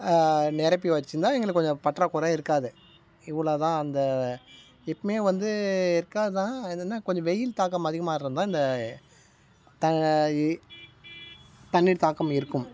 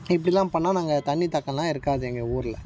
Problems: none marked